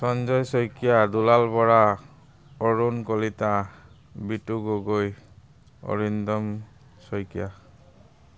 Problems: none marked